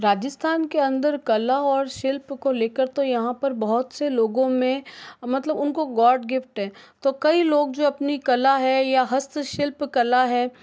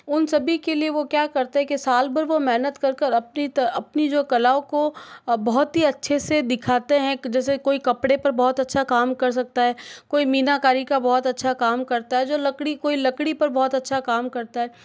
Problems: none marked